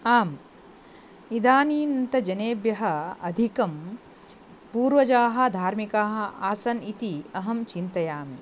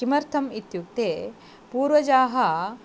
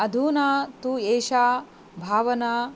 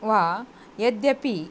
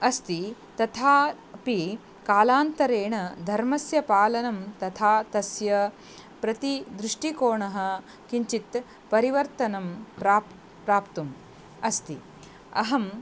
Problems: none marked